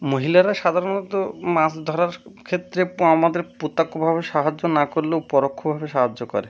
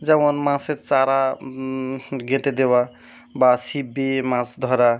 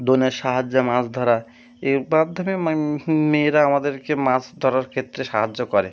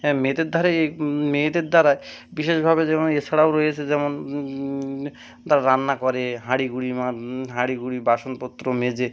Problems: background sounds at intervals